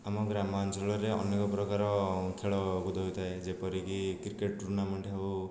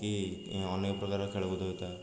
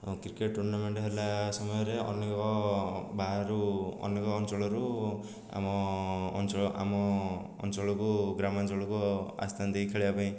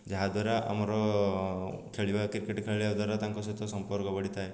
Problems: low volume